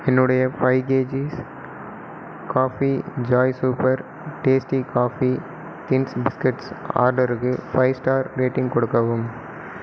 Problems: constant background noise